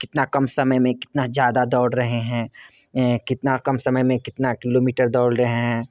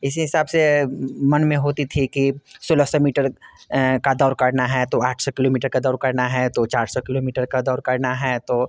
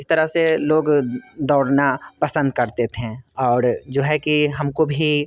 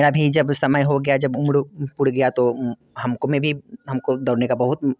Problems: constant background noise, background conversations at intervals